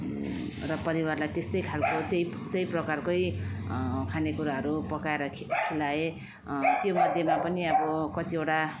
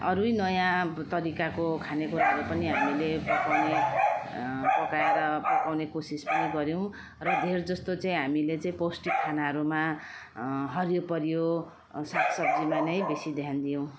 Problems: constant background noise